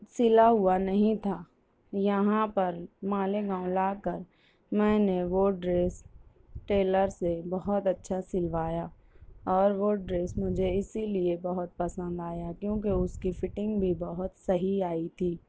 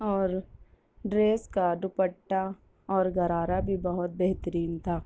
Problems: none marked